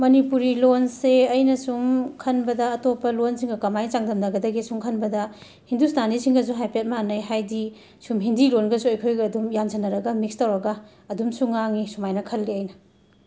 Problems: constant background noise